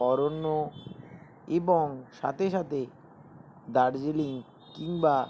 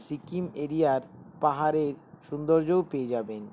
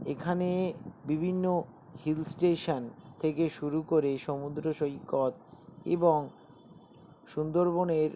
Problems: none marked